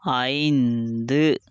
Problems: none marked